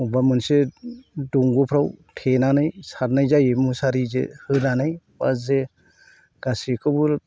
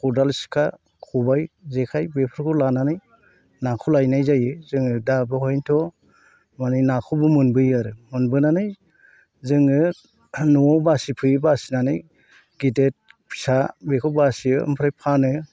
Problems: constant background noise